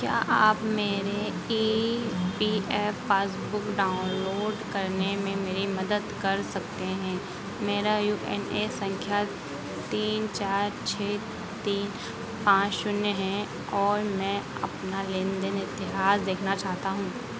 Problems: constant background noise